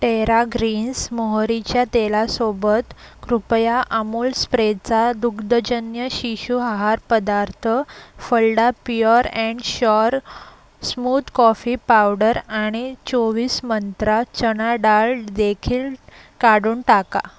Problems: none marked